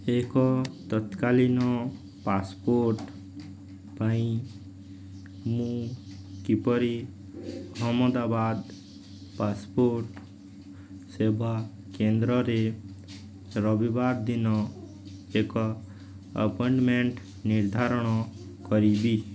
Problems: none marked